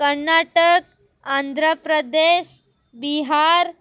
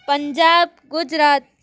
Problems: constant background noise